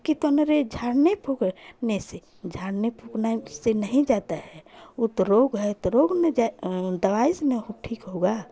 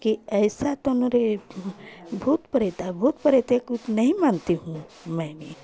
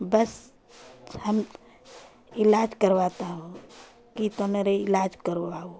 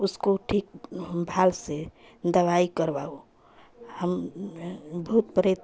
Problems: constant background noise, continuous background conversations